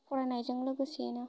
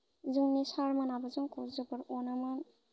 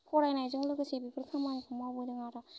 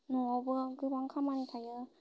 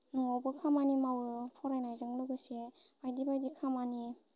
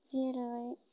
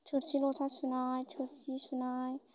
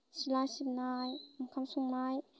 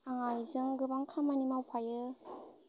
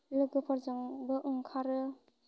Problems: constant background noise